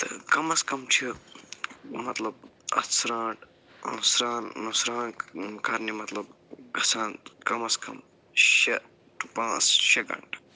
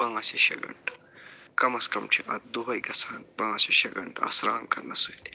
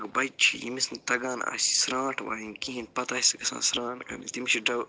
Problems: low volume